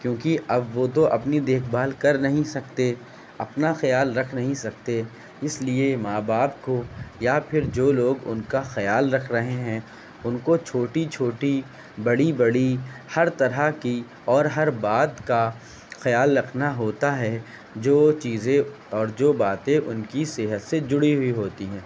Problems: constant background noise